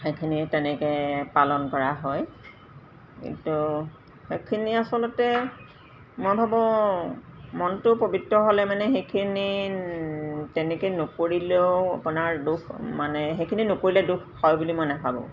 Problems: constant background noise